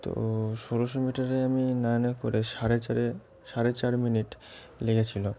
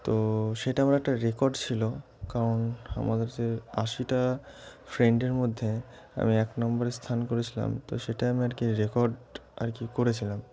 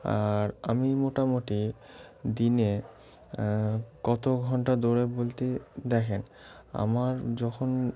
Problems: constant background noise